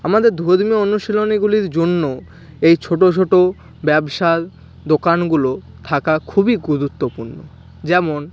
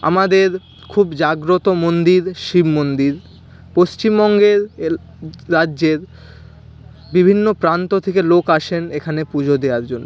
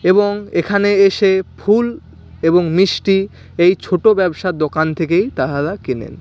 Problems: constant background noise, background conversations at intervals